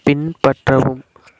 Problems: constant background noise